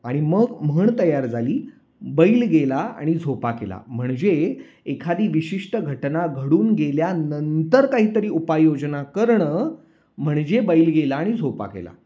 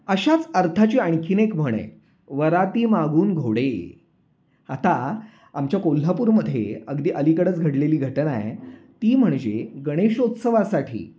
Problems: none marked